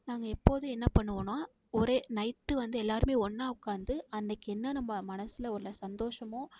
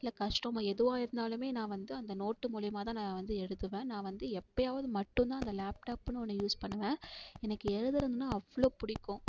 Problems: none marked